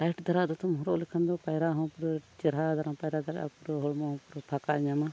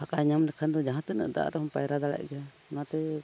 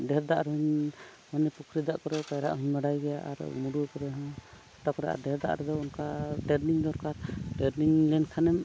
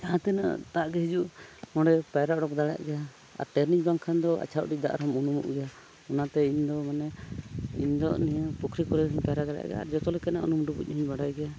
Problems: background sounds at intervals